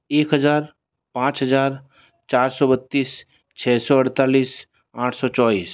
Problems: none marked